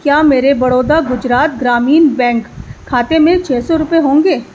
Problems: background sounds at intervals